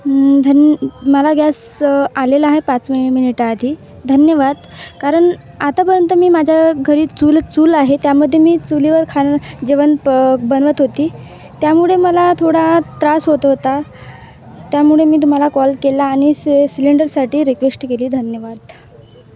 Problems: none marked